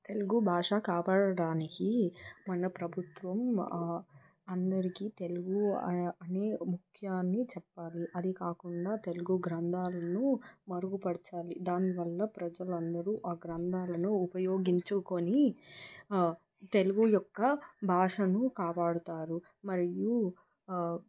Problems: constant background noise